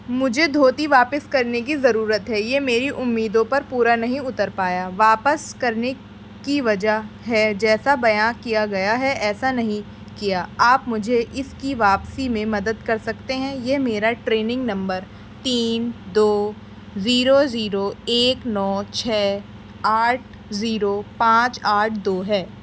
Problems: constant background noise